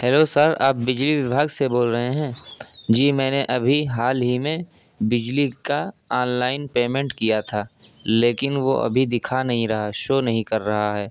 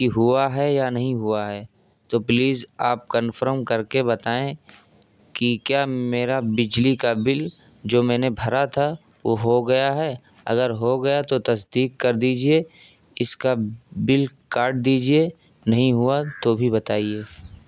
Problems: constant background noise